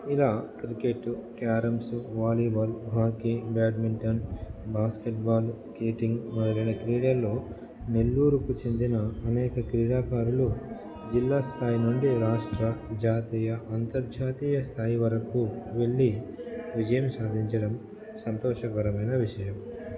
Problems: background sounds at intervals, background conversations at intervals